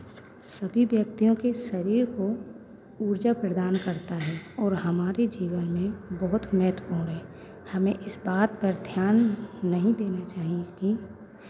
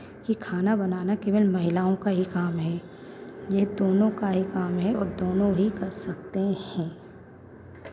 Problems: constant background noise, background conversations at intervals